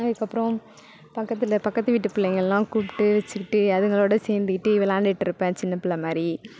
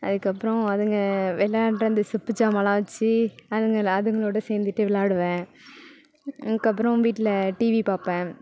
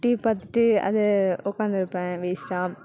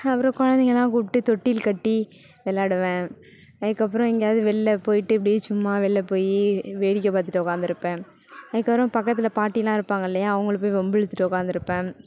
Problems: background sounds at intervals